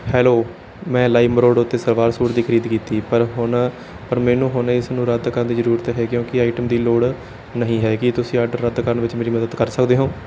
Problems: background sounds at intervals